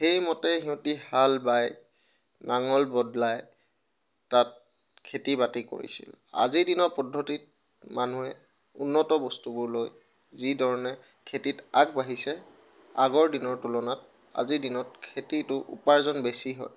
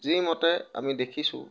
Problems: background sounds at intervals